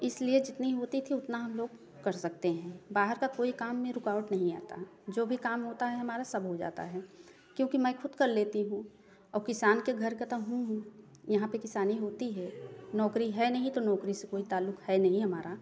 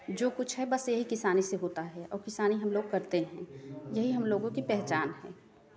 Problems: background sounds at intervals